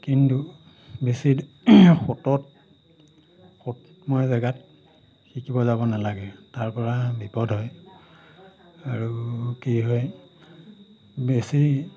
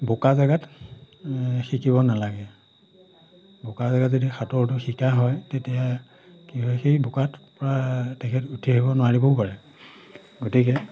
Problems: none marked